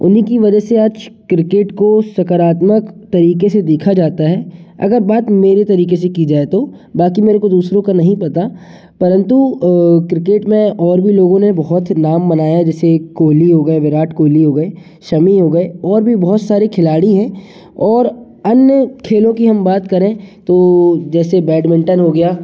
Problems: constant background noise, echo